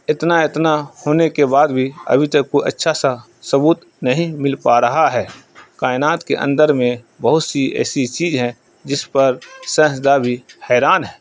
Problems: background sounds at intervals, continuous background conversations